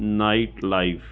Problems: none marked